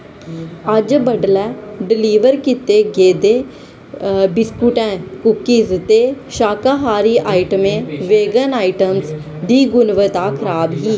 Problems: constant background noise, background conversations at intervals